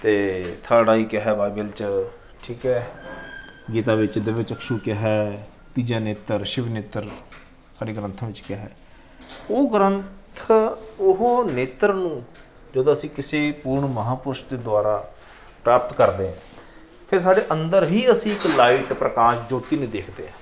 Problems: background sounds at intervals